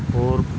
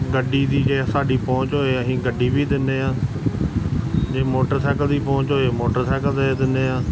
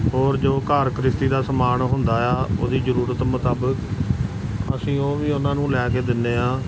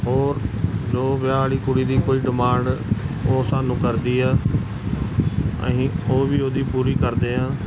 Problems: constant background noise